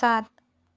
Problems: echo